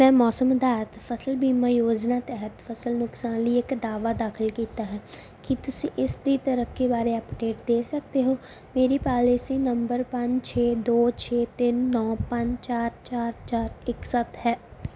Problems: background sounds at intervals